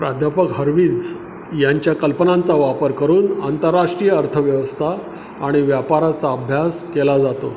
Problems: none marked